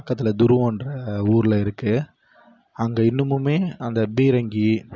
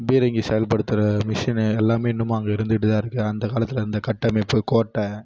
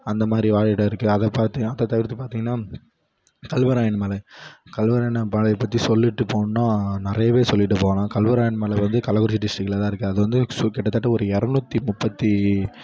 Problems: low volume